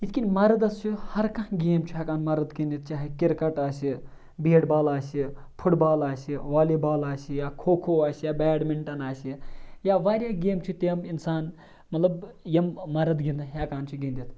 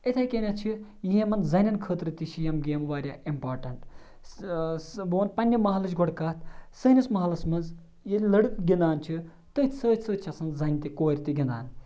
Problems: none marked